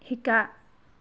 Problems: none marked